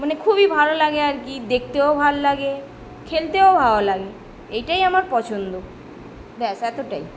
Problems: none marked